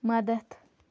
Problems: none marked